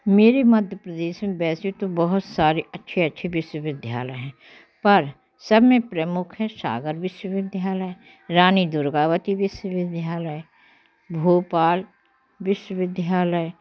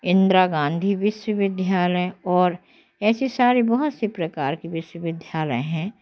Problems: constant background noise